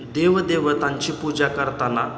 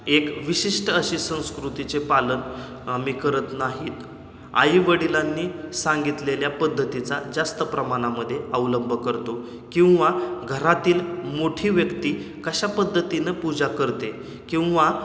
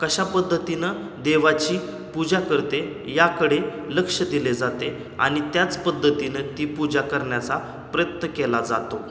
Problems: constant background noise